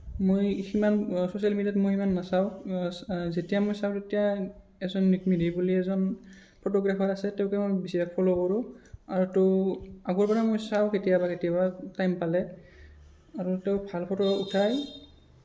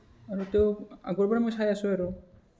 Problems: none marked